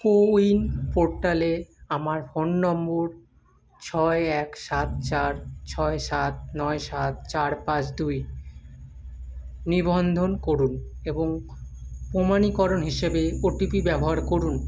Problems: none marked